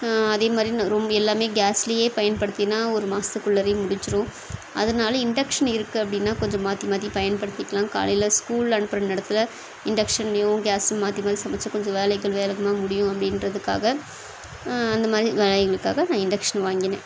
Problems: constant background noise